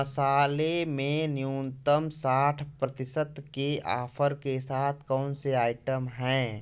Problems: constant background noise